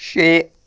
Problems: constant background noise